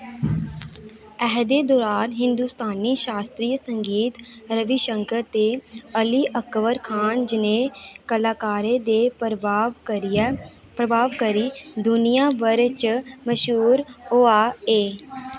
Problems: none marked